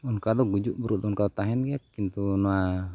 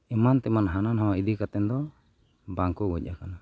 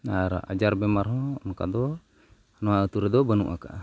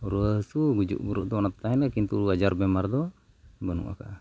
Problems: background sounds at intervals